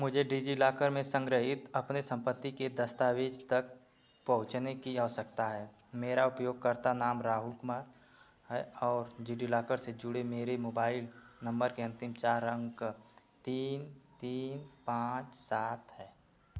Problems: background sounds at intervals